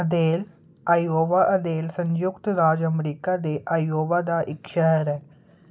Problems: constant background noise